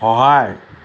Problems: constant background noise